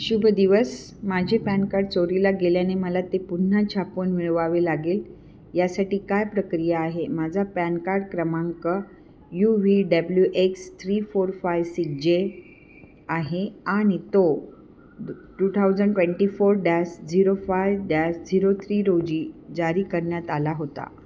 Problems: background sounds at intervals